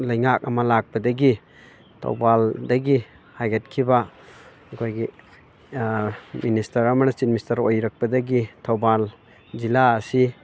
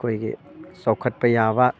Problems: constant background noise